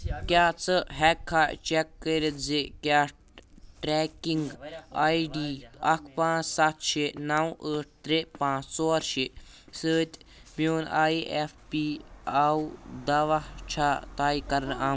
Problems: background conversations at intervals